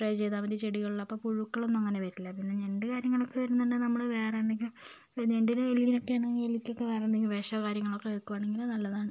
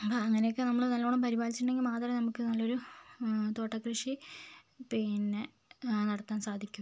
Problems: none marked